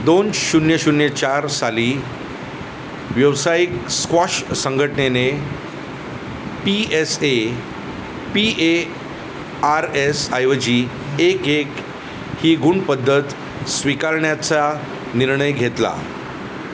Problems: none marked